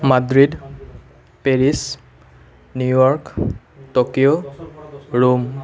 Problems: constant background noise